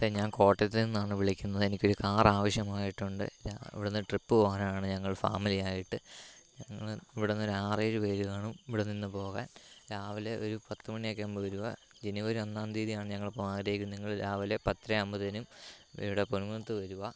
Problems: low volume